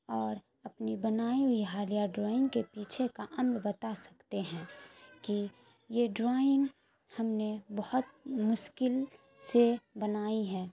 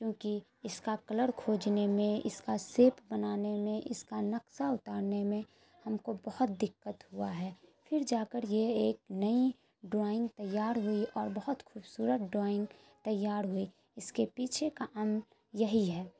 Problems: constant background noise, low volume